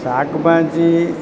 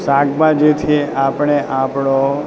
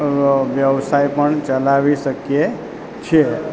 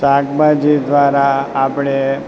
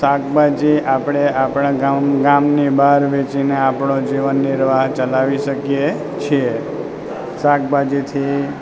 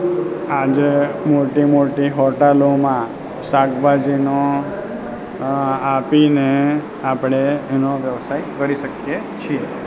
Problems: constant background noise